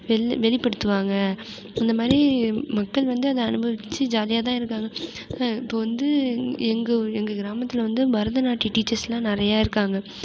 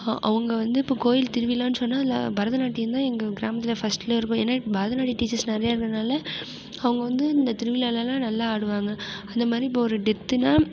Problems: background sounds at intervals